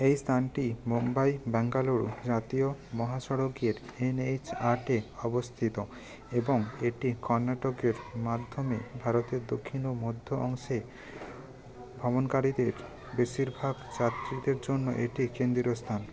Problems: continuous background conversations